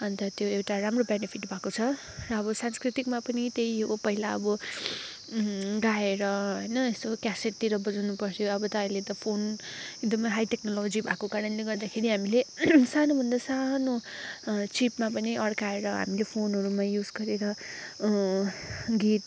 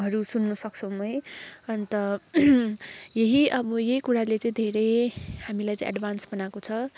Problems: none marked